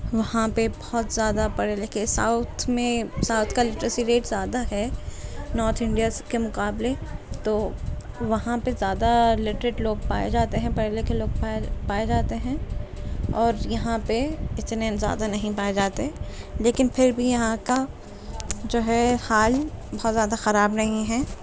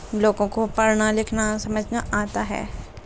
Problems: constant background noise